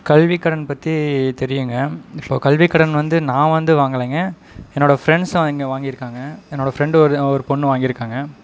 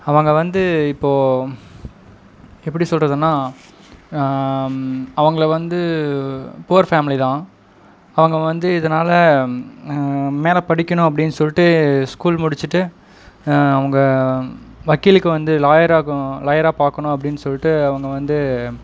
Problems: background sounds at intervals